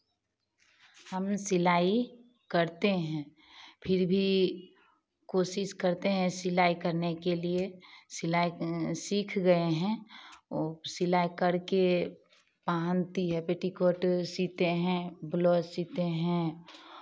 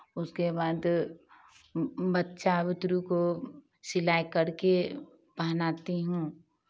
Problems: background sounds at intervals